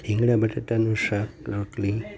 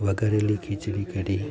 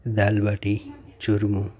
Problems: background sounds at intervals